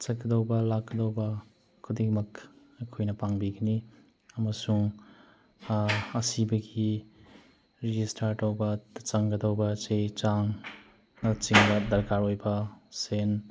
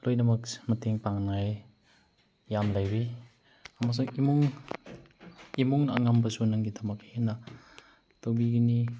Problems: background sounds at intervals